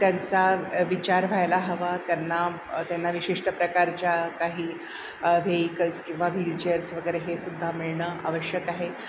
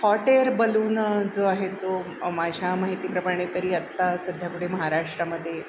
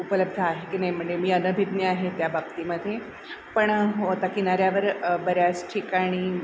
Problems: none marked